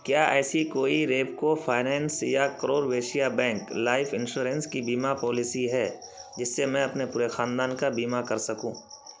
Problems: constant background noise